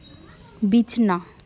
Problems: background conversations at intervals